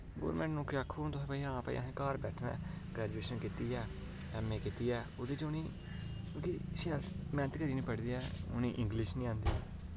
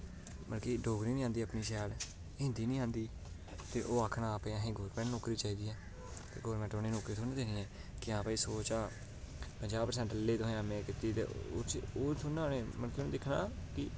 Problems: constant background noise